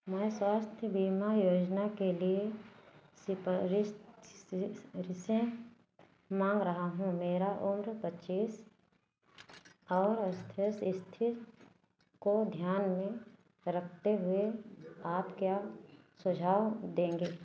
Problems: none marked